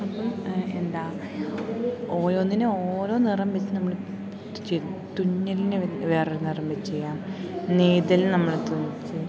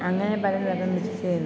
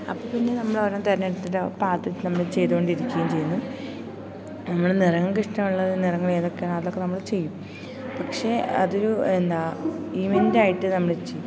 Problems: constant background noise, low volume